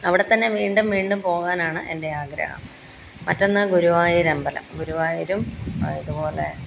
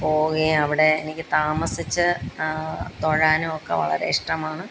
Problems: background sounds at intervals